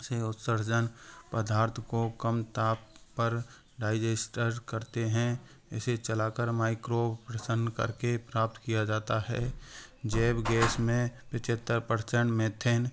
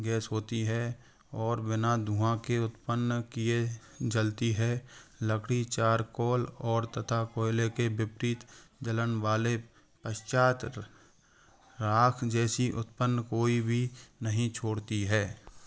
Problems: constant background noise